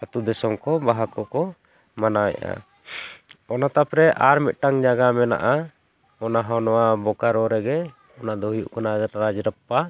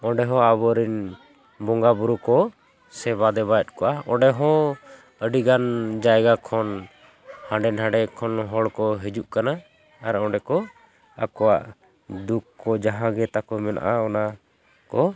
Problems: constant background noise